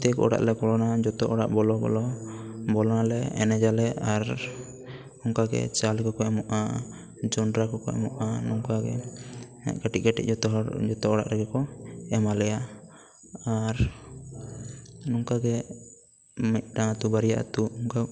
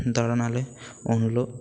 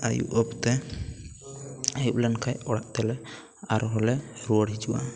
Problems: continuous background conversations